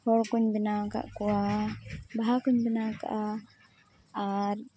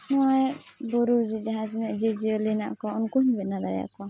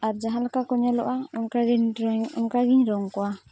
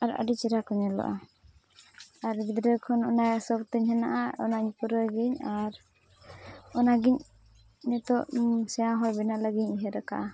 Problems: constant background noise, background conversations at intervals, low volume